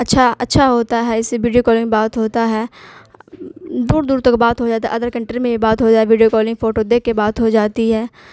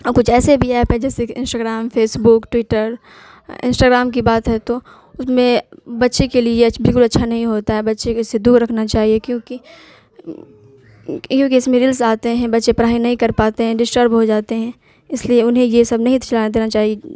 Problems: constant background noise